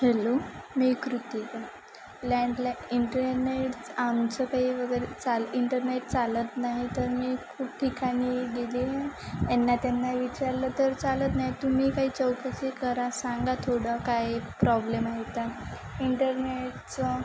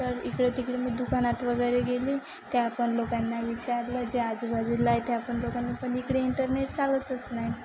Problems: constant background noise, continuous background conversations